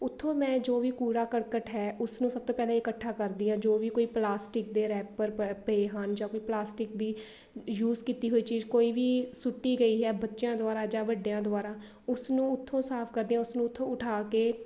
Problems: none marked